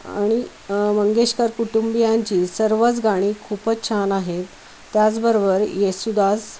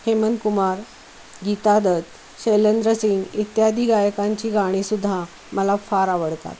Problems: constant background noise